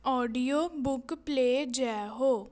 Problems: background conversations at intervals